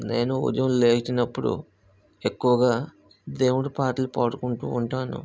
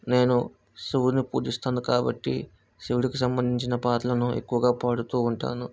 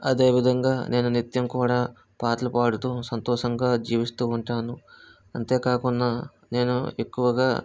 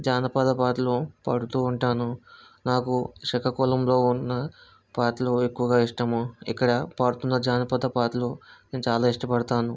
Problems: none marked